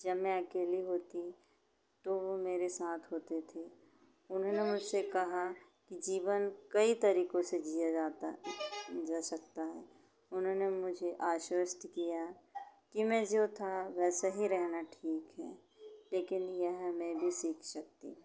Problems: constant background noise